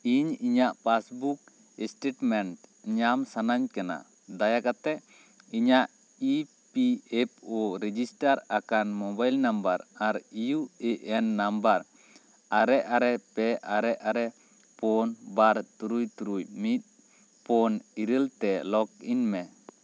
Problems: none marked